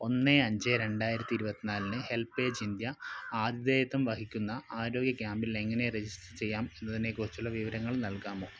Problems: low volume